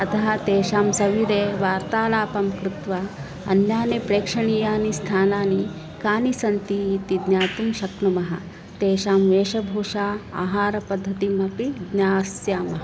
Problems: none marked